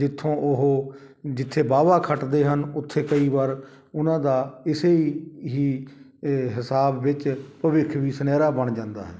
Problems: none marked